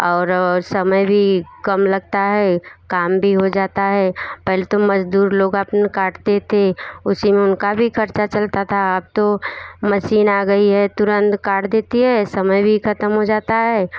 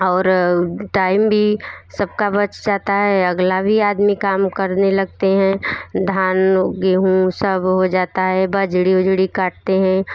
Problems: none marked